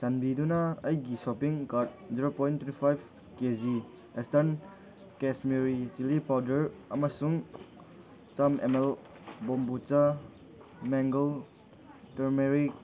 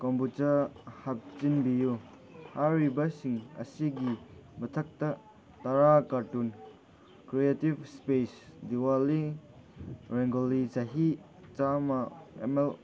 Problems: background conversations at intervals